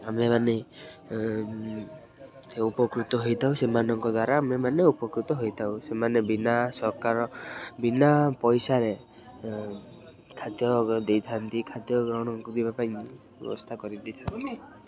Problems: constant background noise, continuous background conversations